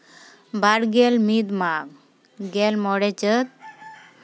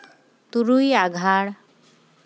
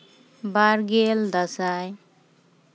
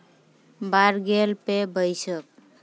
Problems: none marked